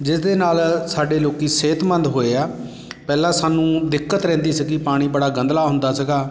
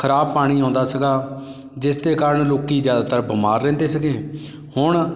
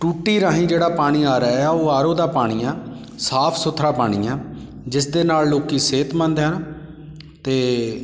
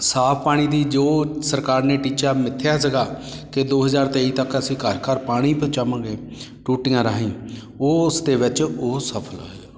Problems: constant background noise